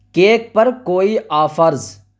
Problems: constant background noise